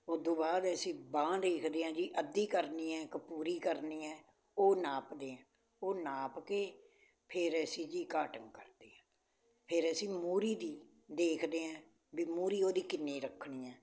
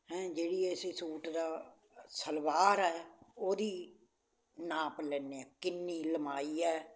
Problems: constant background noise